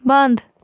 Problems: none marked